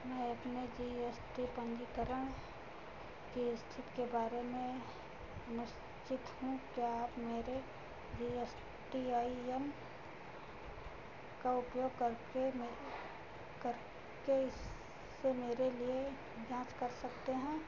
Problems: constant background noise, low volume